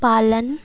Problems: constant background noise